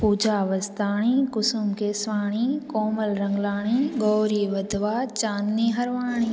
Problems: constant background noise, echo